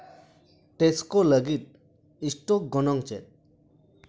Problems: background sounds at intervals